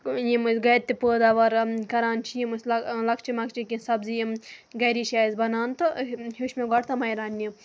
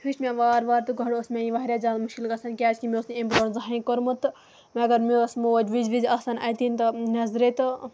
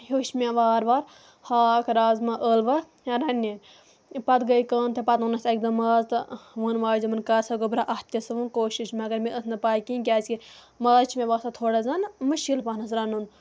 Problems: none marked